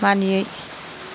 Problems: constant background noise